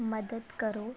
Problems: background conversations at intervals